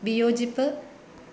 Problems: constant background noise